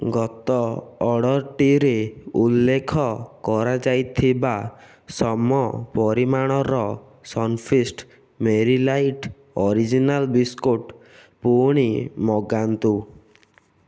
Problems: none marked